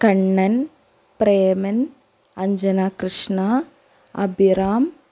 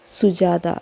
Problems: none marked